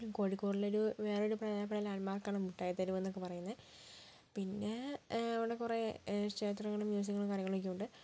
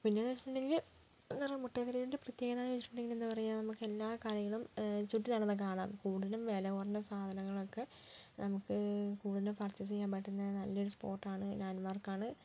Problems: low volume